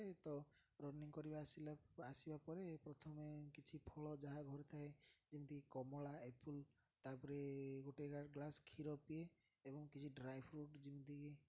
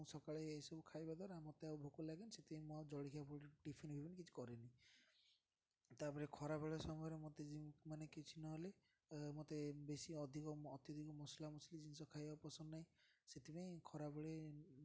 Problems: none marked